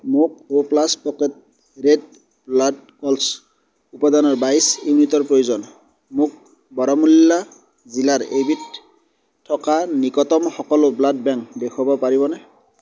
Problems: background sounds at intervals